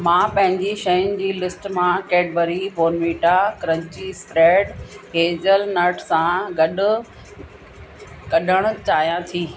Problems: constant background noise